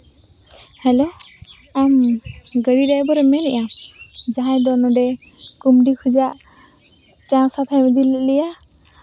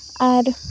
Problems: none marked